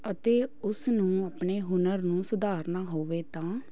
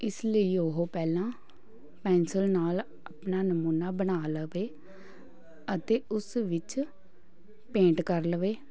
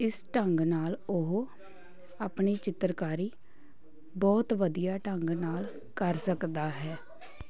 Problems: background sounds at intervals, continuous background conversations